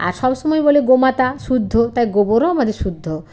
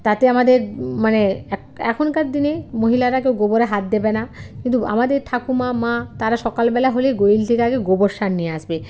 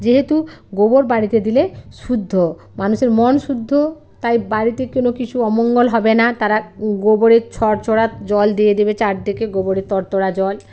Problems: background sounds at intervals